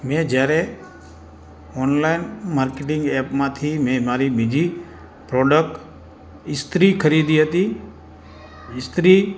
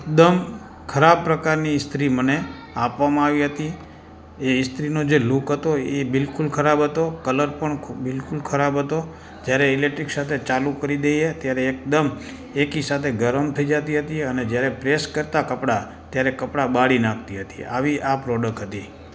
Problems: constant background noise, background conversations at intervals